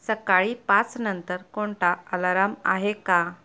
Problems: none marked